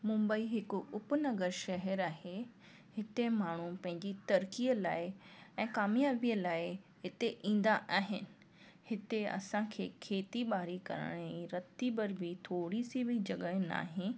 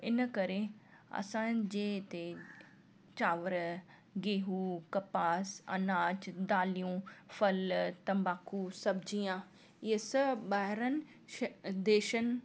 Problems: constant background noise